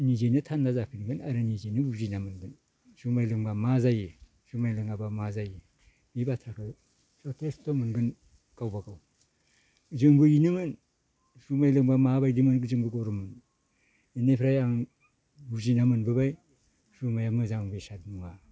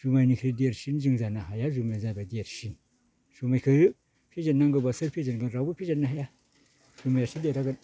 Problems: low volume